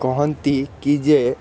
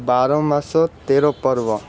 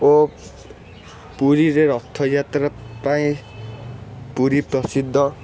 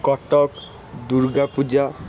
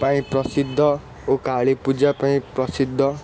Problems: constant background noise